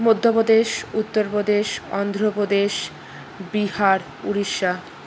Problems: constant background noise